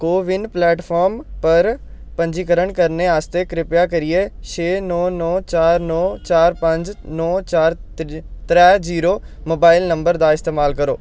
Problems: background conversations at intervals